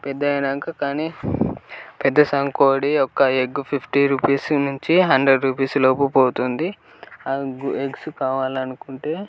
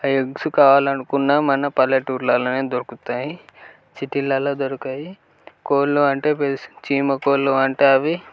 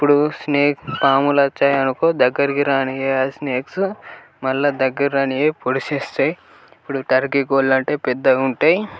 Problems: constant background noise, background conversations at intervals